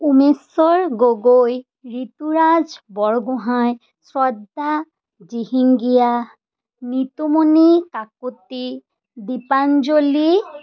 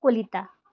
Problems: none marked